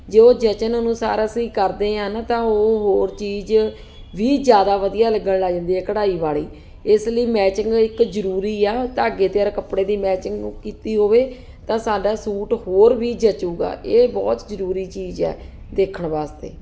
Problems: constant background noise